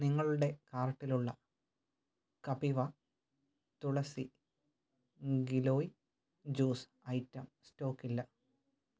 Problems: none marked